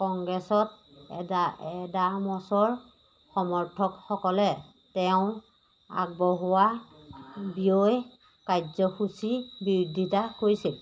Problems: none marked